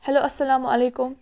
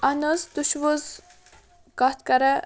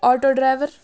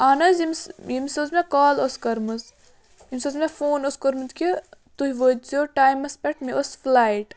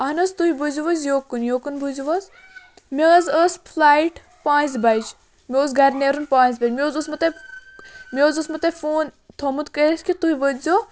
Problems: background sounds at intervals, background conversations at intervals